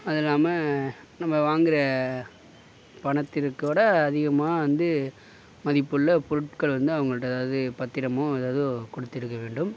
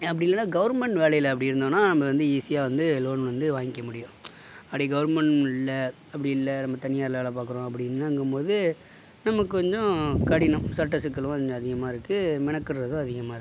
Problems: background sounds at intervals